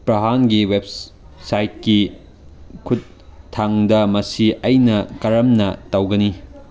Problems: none marked